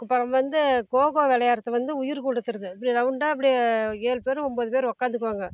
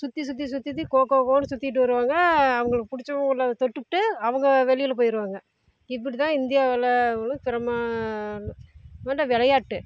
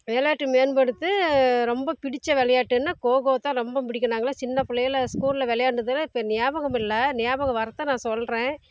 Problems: constant background noise, low volume